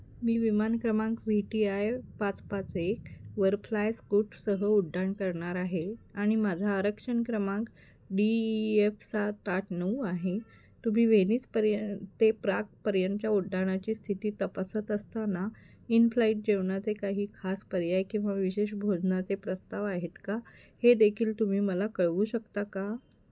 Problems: background sounds at intervals